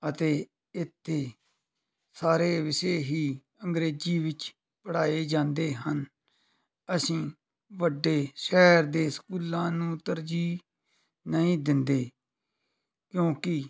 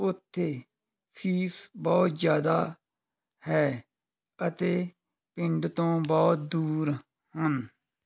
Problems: background conversations at intervals